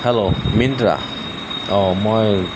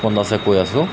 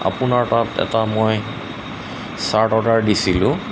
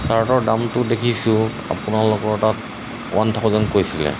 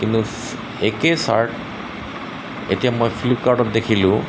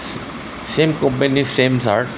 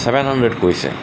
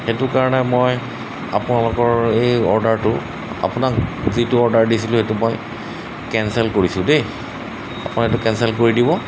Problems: constant background noise